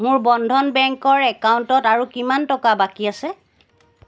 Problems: none marked